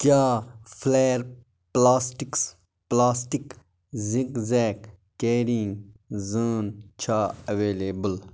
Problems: constant background noise